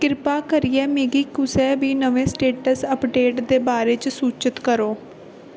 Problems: constant background noise